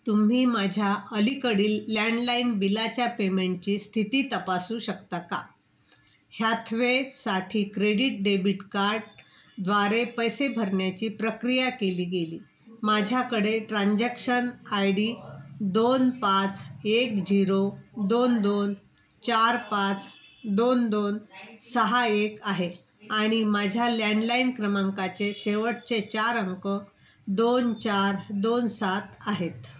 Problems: constant background noise